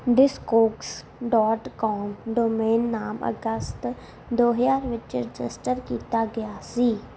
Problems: background sounds at intervals